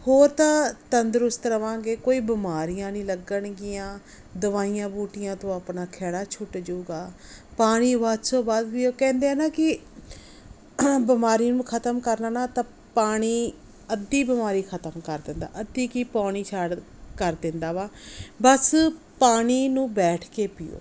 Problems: none marked